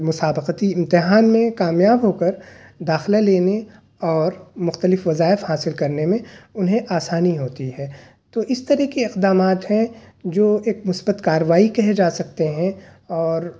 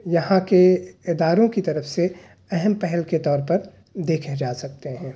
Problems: none marked